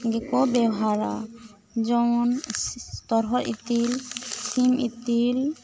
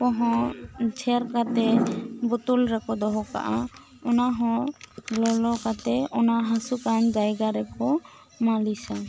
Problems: background conversations at intervals